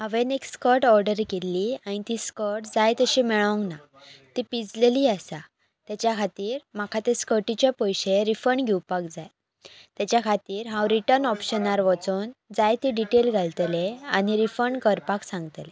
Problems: constant background noise